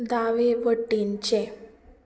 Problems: background sounds at intervals